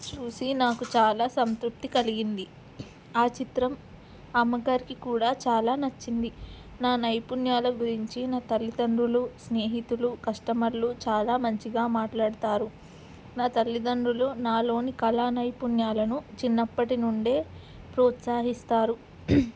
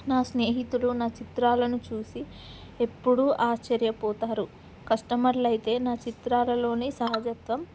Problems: background sounds at intervals